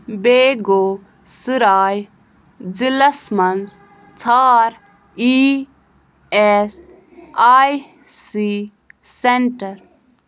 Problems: none marked